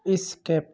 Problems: background sounds at intervals, background conversations at intervals